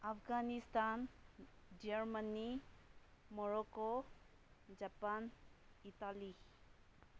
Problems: none marked